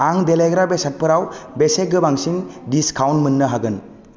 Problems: none marked